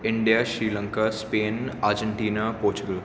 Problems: none marked